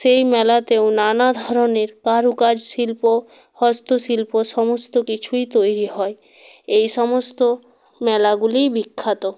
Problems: none marked